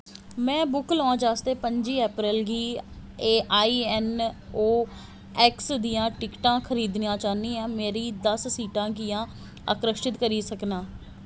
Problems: constant background noise